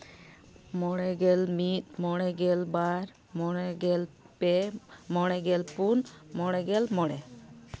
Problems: none marked